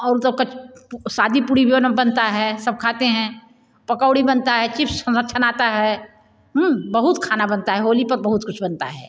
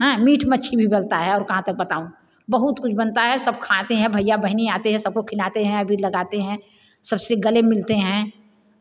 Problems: constant background noise, echo